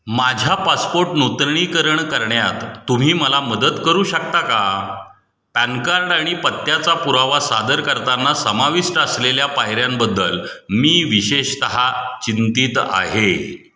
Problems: none marked